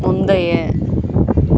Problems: constant background noise